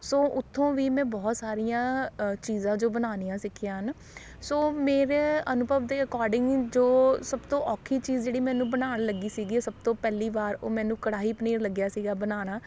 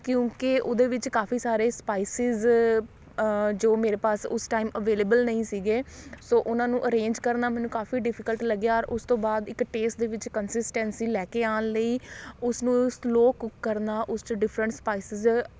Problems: none marked